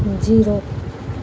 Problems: background sounds at intervals